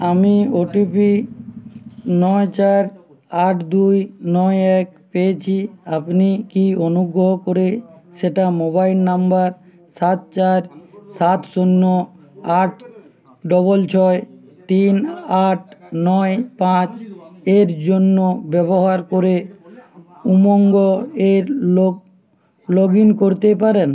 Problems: constant background noise, background conversations at intervals